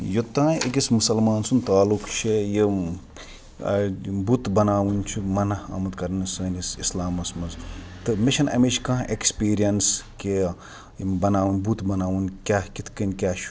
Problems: none marked